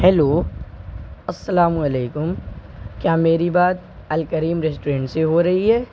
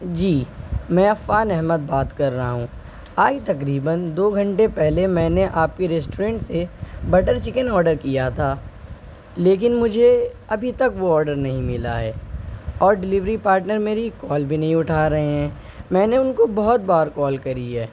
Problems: constant background noise